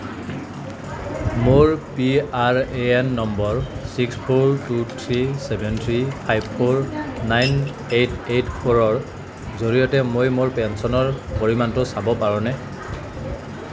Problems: none marked